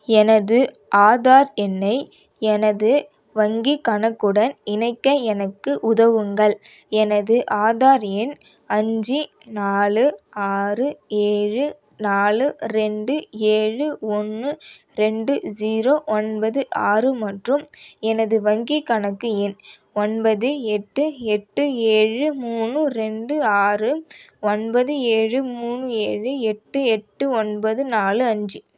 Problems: none marked